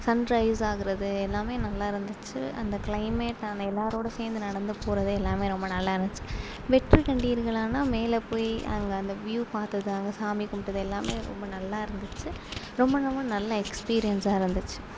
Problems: low volume